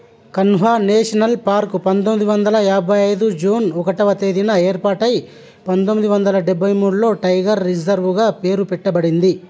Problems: constant background noise